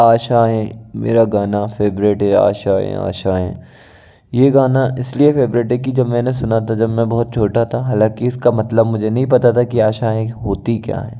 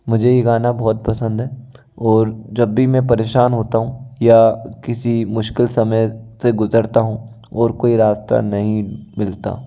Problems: background sounds at intervals